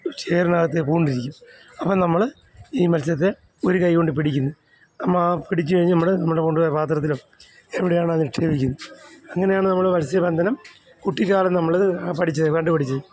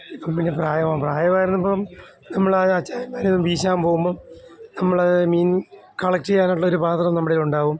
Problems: background sounds at intervals